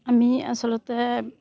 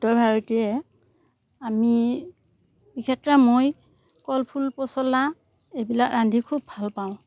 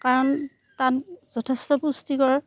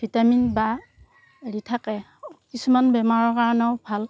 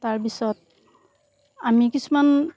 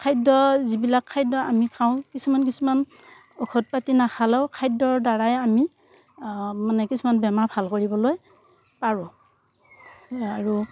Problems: none marked